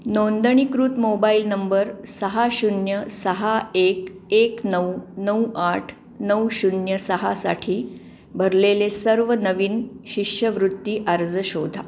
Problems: none marked